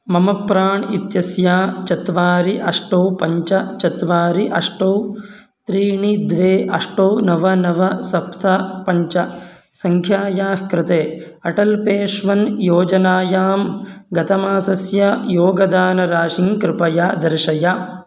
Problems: none marked